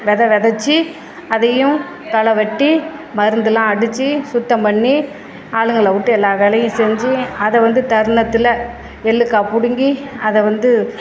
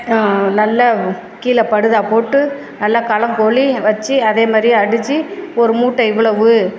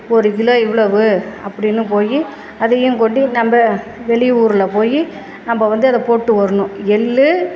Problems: background sounds at intervals